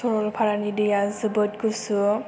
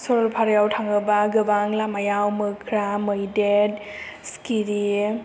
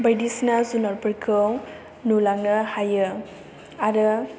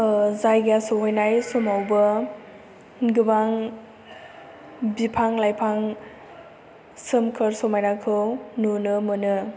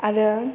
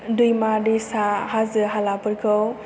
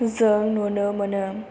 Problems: low volume